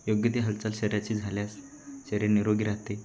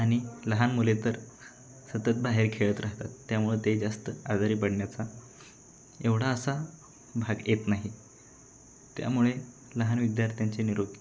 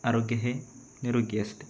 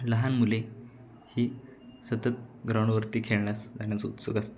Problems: constant background noise, continuous background conversations